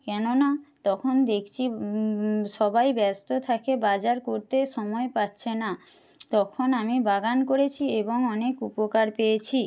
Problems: none marked